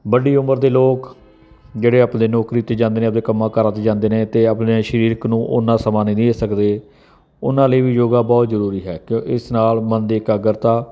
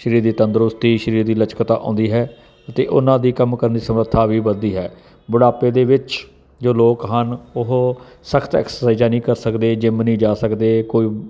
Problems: none marked